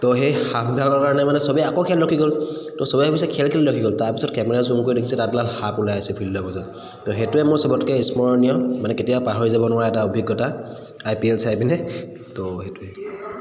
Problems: echo